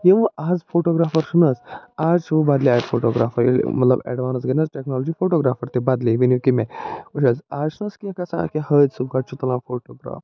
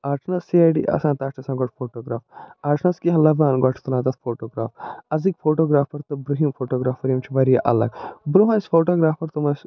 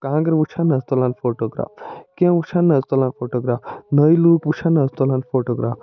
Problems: none marked